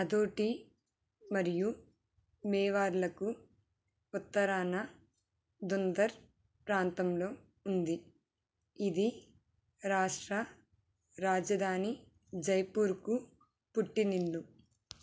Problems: low volume